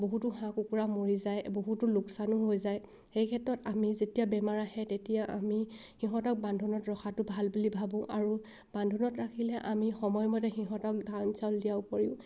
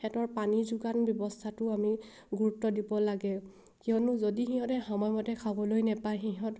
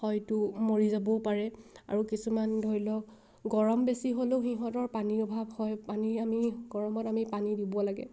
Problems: background sounds at intervals